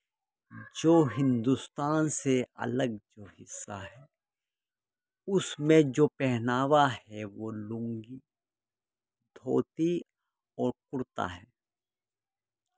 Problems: background sounds at intervals